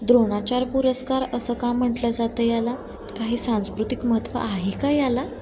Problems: constant background noise, background conversations at intervals